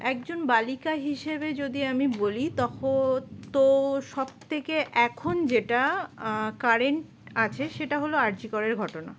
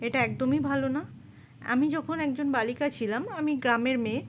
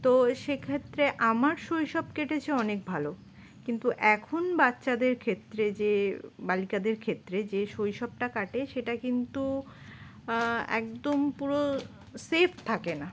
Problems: none marked